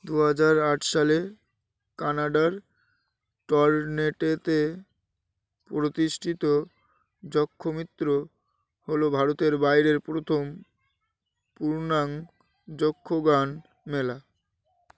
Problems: background sounds at intervals